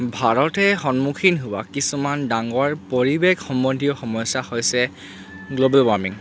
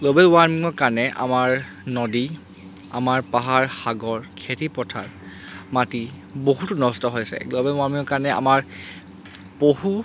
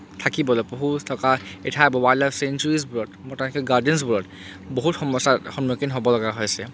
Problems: constant background noise